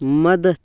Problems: none marked